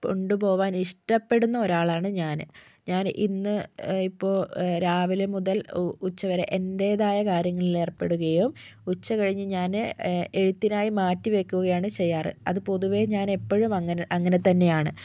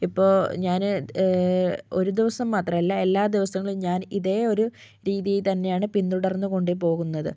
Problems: none marked